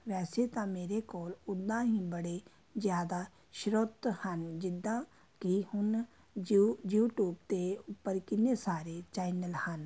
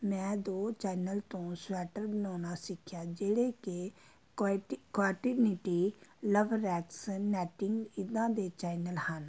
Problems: background sounds at intervals